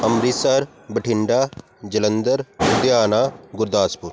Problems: constant background noise